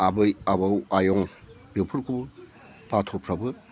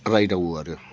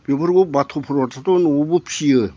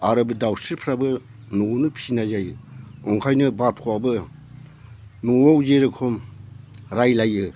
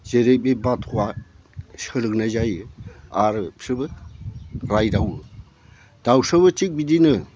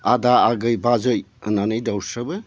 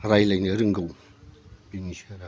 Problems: low volume